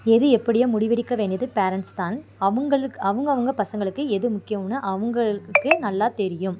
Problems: background sounds at intervals